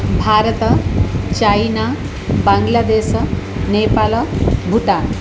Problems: constant background noise